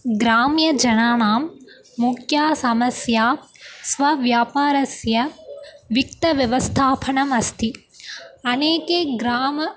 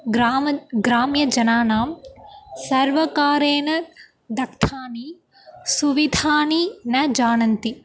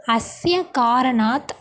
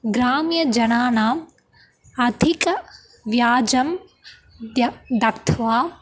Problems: constant background noise, continuous background conversations